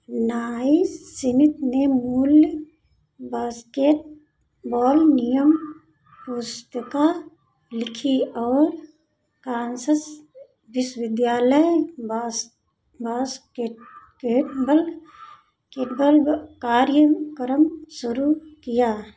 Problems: constant background noise